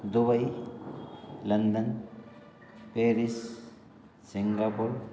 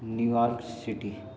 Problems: constant background noise, background conversations at intervals